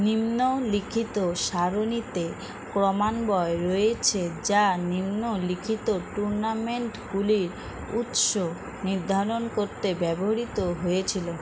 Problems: constant background noise, background conversations at intervals